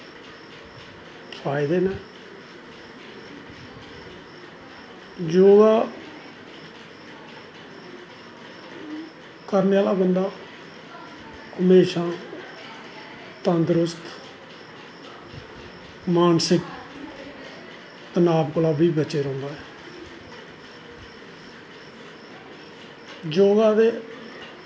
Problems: constant background noise, echo